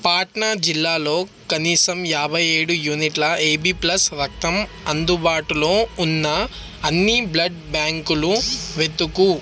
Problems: background sounds at intervals